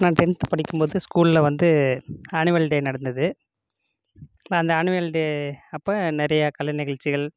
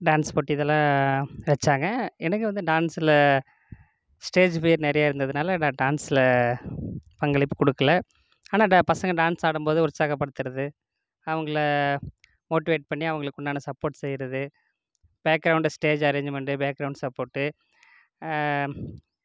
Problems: constant background noise